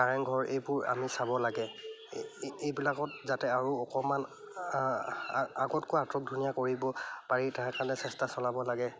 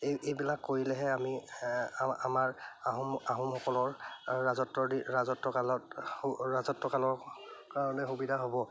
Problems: none marked